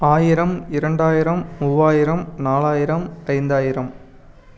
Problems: none marked